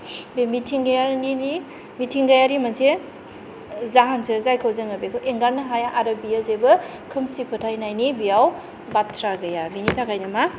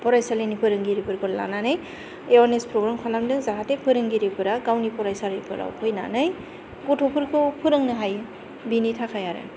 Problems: constant background noise